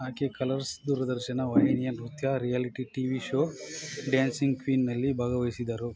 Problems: background sounds at intervals